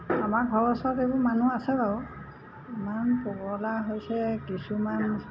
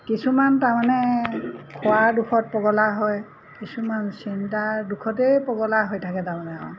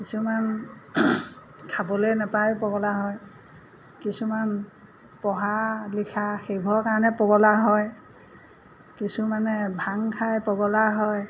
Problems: constant background noise